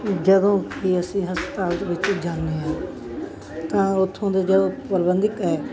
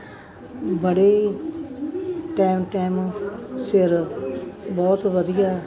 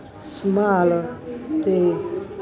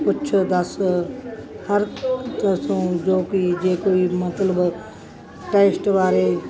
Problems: constant background noise